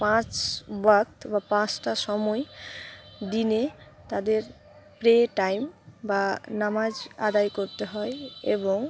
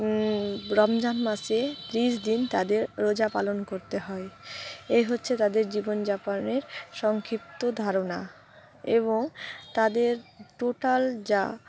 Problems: background sounds at intervals